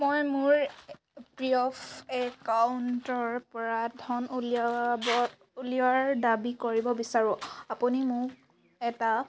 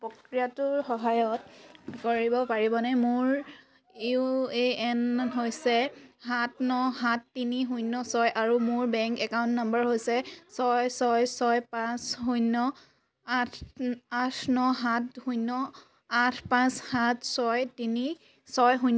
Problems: background sounds at intervals